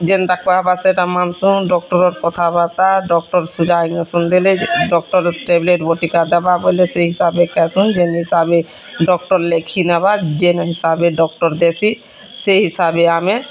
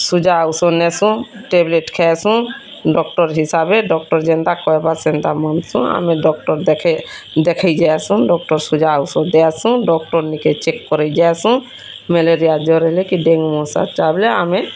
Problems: constant background noise, continuous background conversations